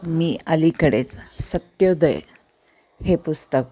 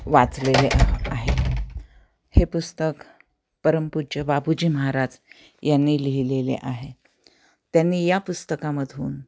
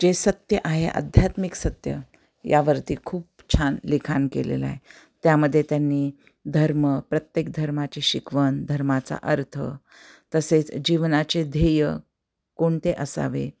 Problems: none marked